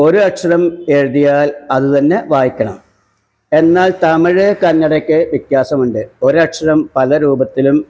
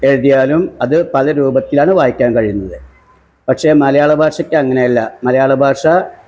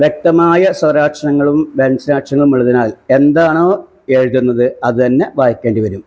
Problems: background sounds at intervals